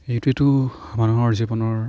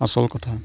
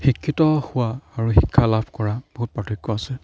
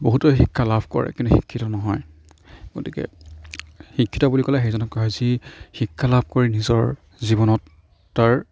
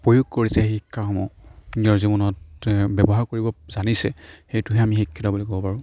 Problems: none marked